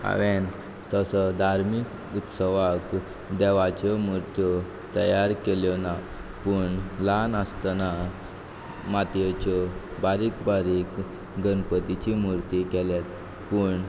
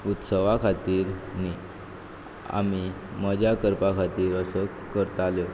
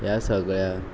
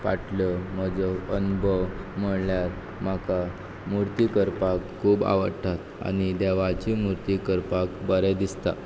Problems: background sounds at intervals